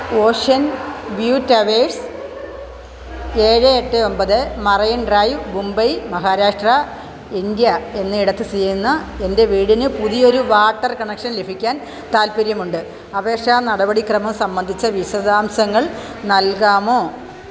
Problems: none marked